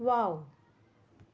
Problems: low volume